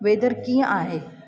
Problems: constant background noise, echo